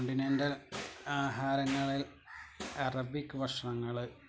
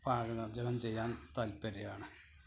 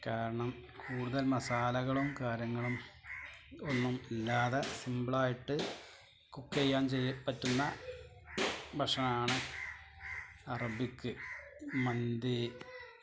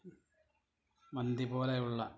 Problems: constant background noise, low volume